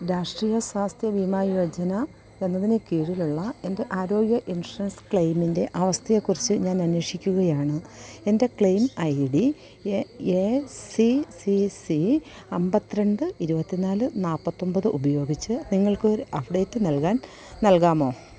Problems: constant background noise, low volume